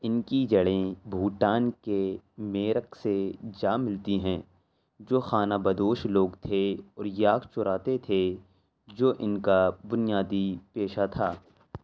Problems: none marked